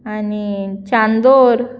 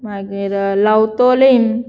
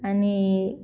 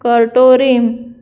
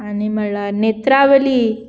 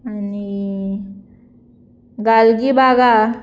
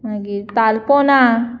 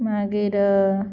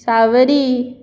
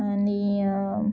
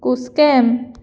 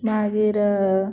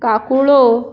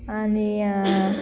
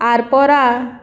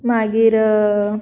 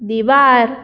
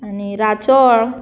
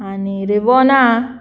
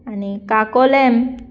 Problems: background sounds at intervals